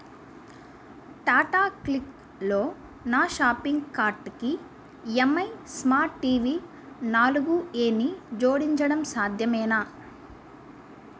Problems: none marked